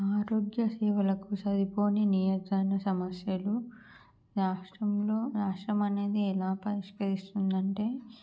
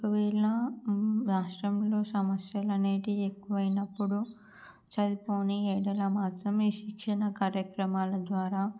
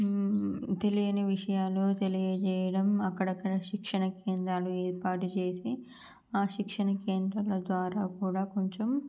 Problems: low volume